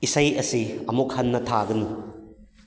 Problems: none marked